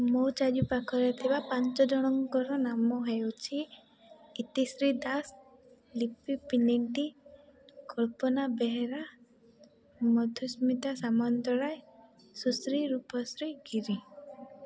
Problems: background sounds at intervals, low volume